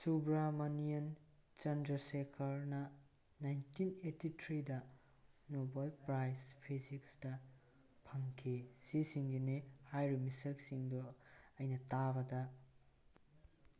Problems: background conversations at intervals